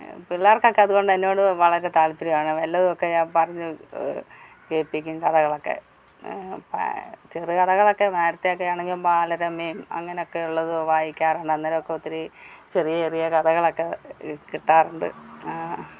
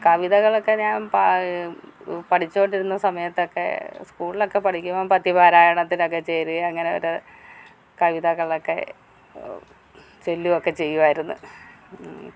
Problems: none marked